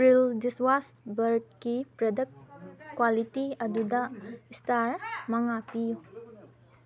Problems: background sounds at intervals, background conversations at intervals